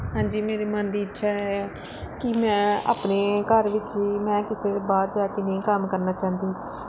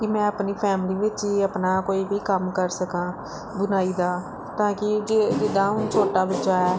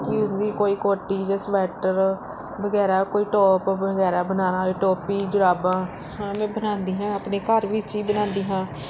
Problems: background sounds at intervals